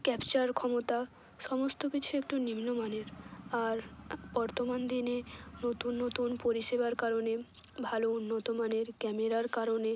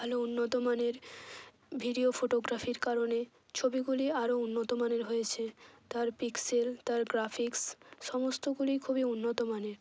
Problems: none marked